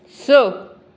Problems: none marked